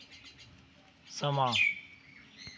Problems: background sounds at intervals